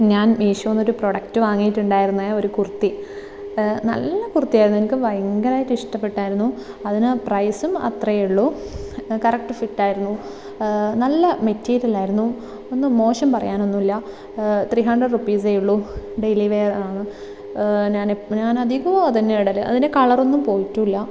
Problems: background sounds at intervals